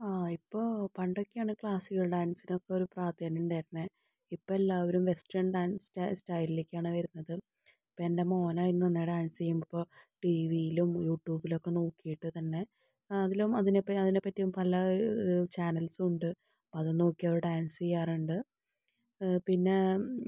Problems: none marked